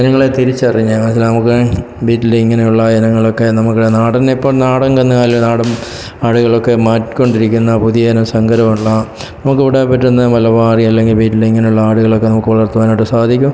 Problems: background sounds at intervals